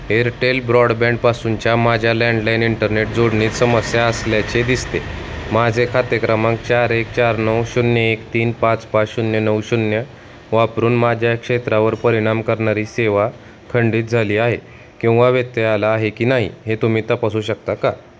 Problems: none marked